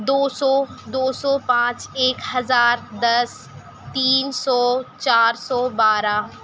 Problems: constant background noise